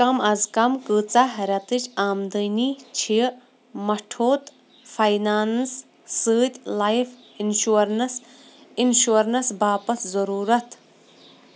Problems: constant background noise